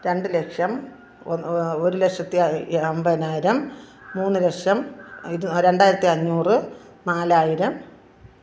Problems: none marked